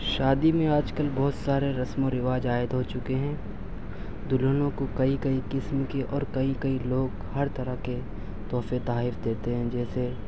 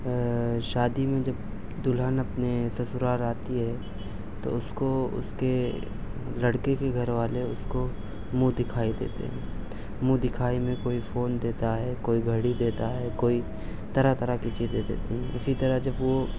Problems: none marked